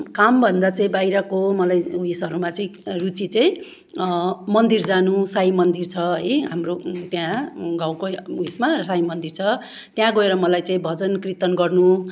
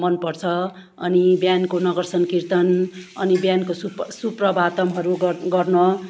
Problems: none marked